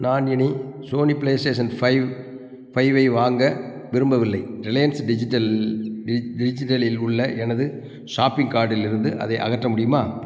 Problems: none marked